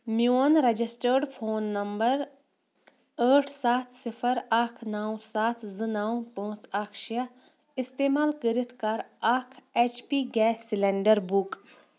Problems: none marked